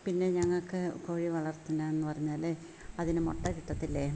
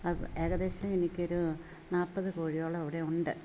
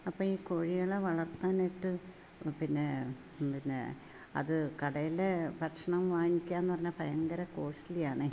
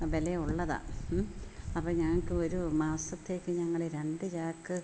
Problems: none marked